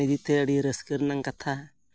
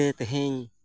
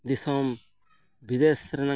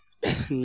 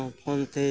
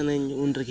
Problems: background sounds at intervals